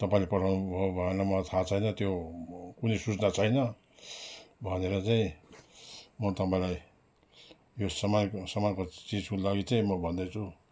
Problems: background sounds at intervals